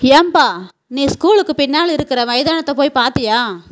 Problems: background sounds at intervals